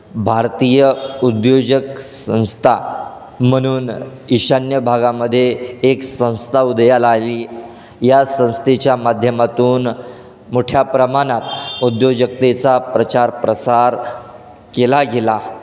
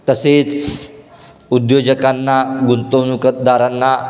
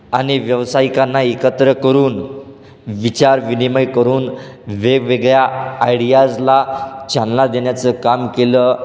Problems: constant background noise